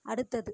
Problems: none marked